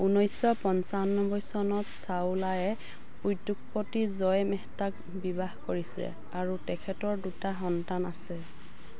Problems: constant background noise